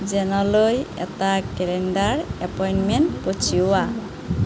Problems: constant background noise